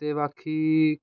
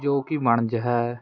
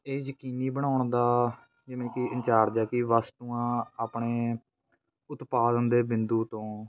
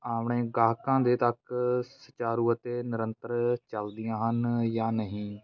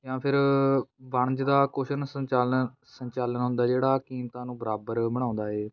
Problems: background sounds at intervals, continuous background conversations